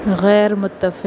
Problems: none marked